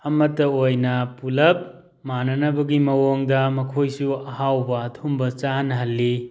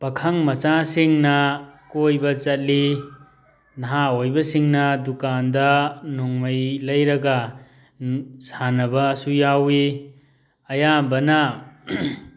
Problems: background sounds at intervals